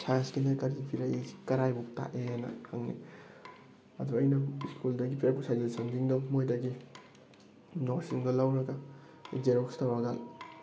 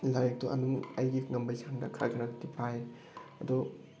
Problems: background sounds at intervals